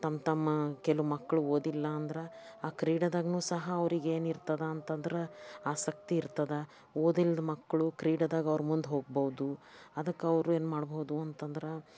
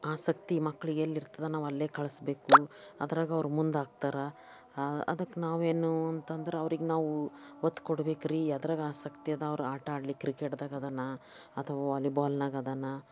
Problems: background sounds at intervals, background conversations at intervals